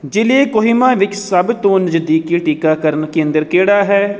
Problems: none marked